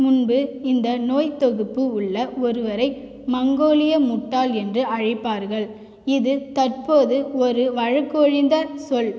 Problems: echo